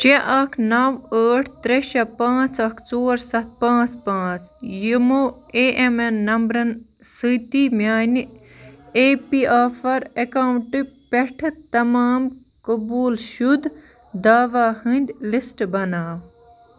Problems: none marked